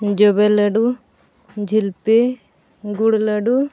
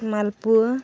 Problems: background sounds at intervals